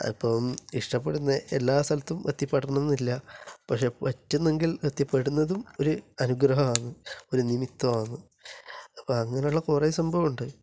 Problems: constant background noise, low volume